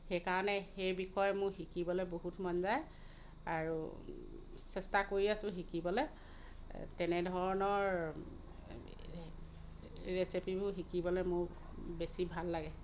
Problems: none marked